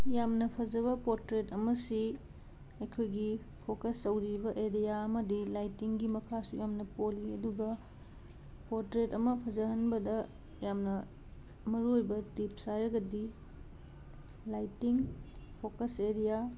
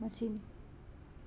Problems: background sounds at intervals